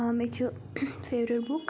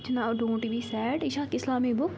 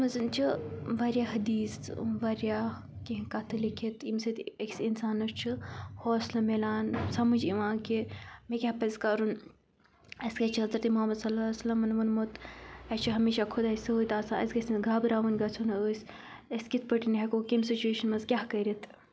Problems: constant background noise